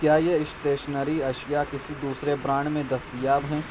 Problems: constant background noise